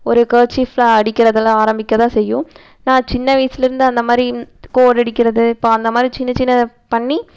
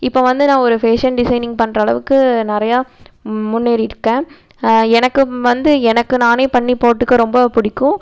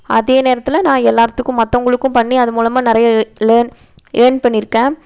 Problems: none marked